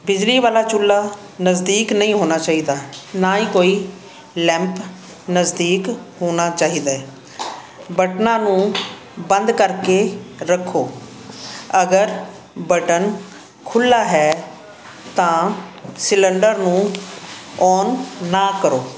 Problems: constant background noise